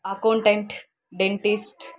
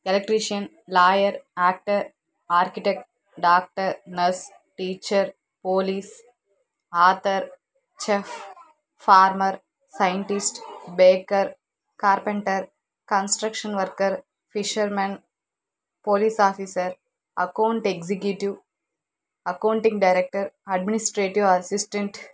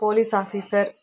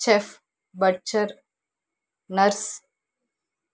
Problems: none marked